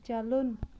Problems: background conversations at intervals